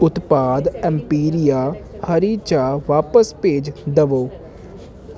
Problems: none marked